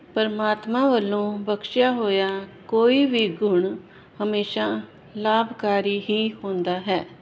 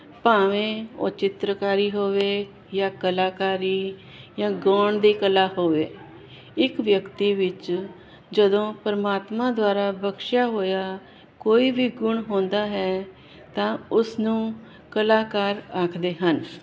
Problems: constant background noise